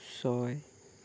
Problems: low volume